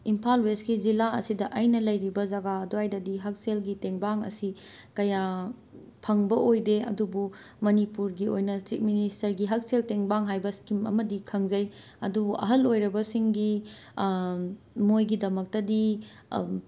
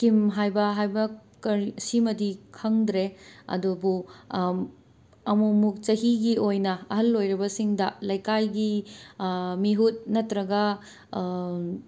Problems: background sounds at intervals